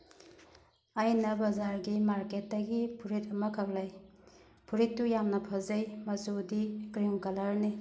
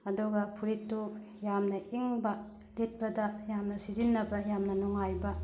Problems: background sounds at intervals